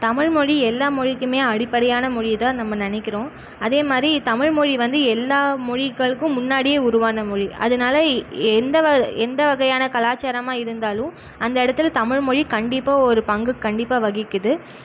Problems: none marked